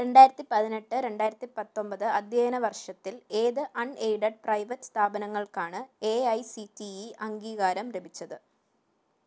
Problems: none marked